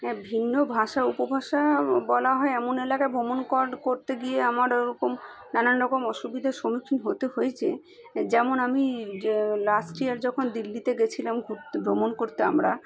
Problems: background sounds at intervals